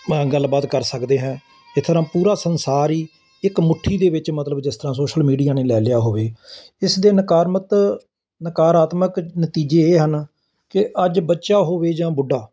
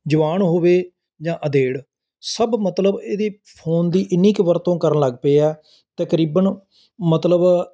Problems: constant background noise